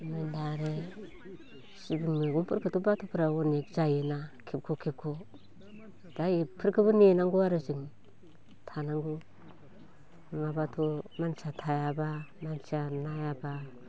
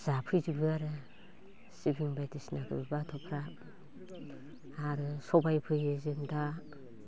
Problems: none marked